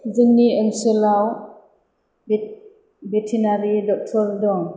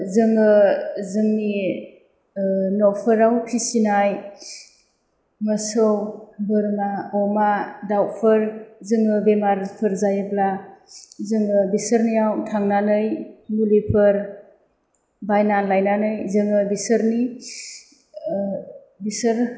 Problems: none marked